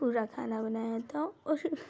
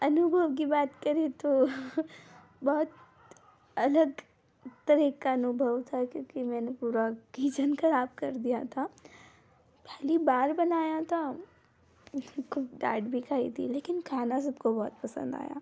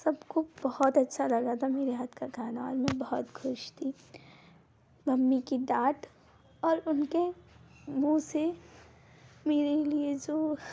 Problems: none marked